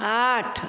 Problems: none marked